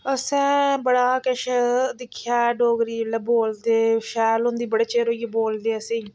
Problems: background sounds at intervals